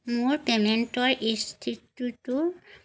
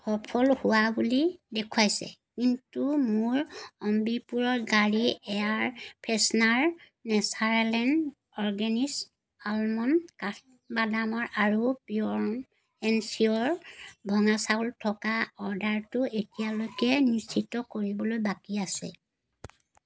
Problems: background sounds at intervals